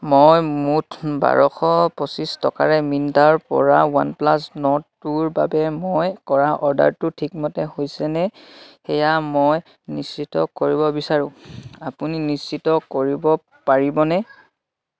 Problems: none marked